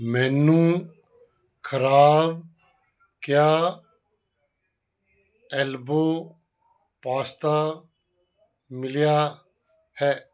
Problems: none marked